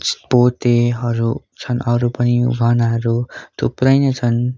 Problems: none marked